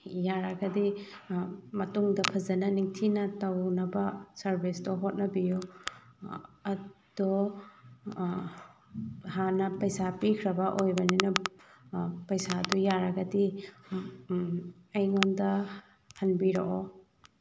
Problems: constant background noise